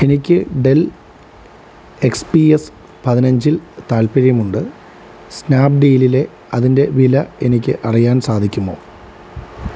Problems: constant background noise